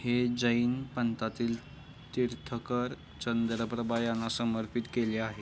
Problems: none marked